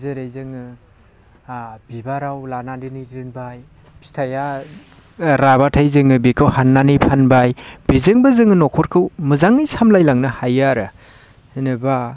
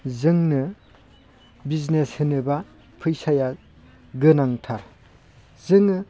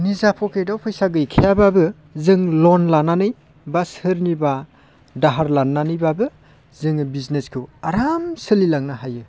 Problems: constant background noise